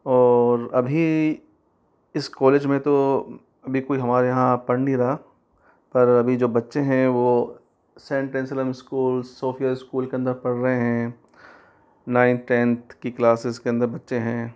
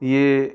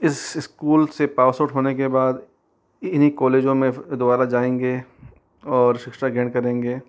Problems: none marked